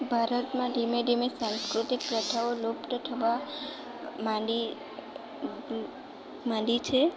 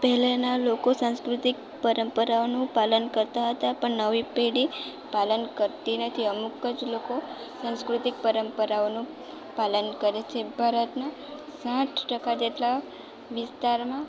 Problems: none marked